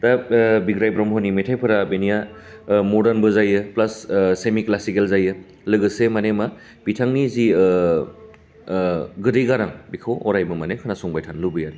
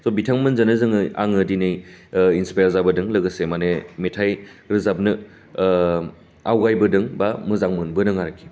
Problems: none marked